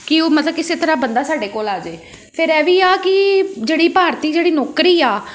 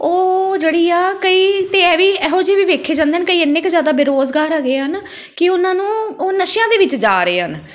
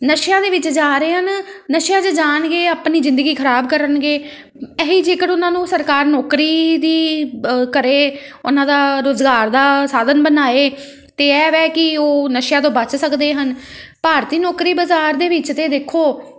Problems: none marked